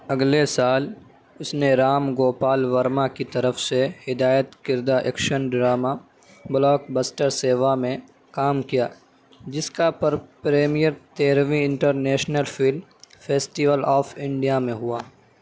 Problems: none marked